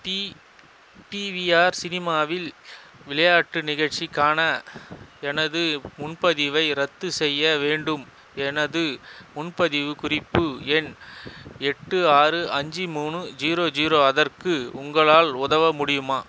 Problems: constant background noise